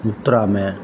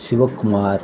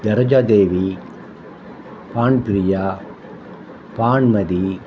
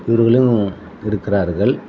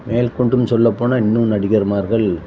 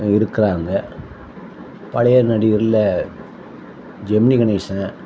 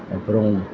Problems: constant background noise